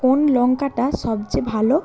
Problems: constant background noise